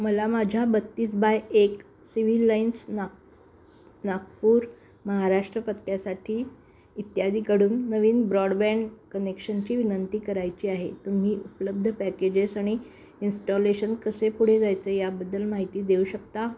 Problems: constant background noise